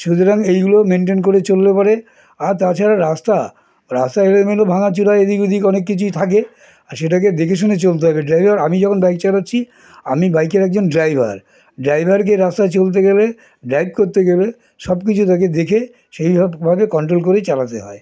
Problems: continuous background conversations